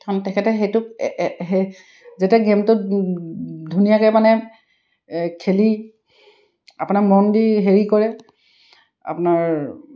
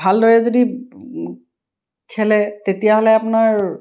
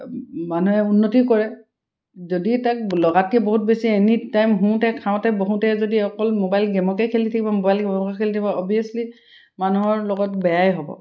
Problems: none marked